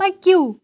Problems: background sounds at intervals